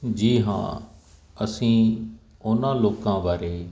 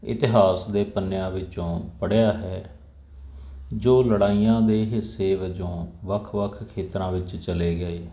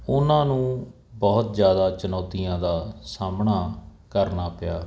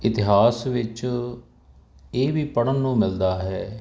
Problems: none marked